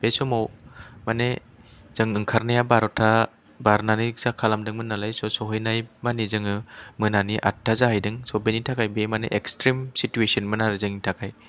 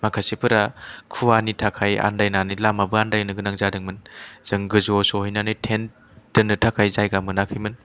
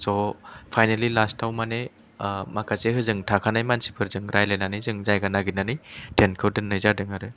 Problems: none marked